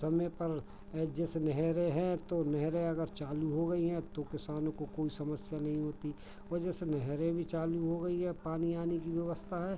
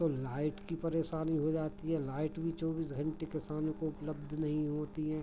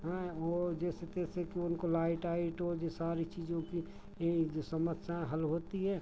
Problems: none marked